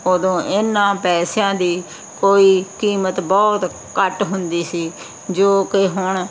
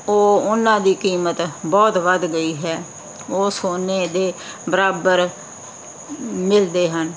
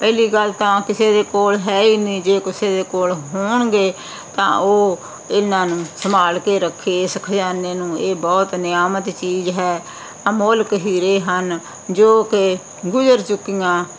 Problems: constant background noise